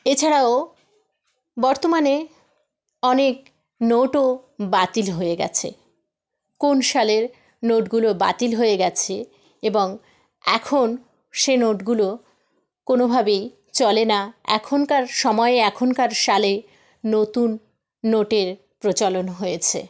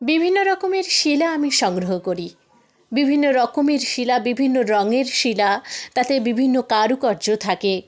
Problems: background sounds at intervals